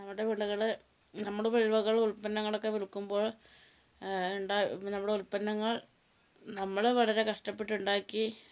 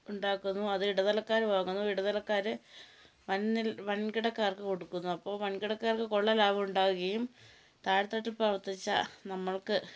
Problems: low volume